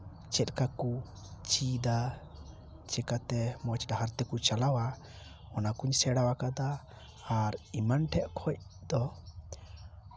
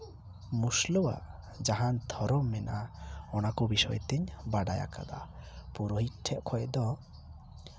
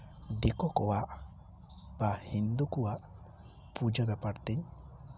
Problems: none marked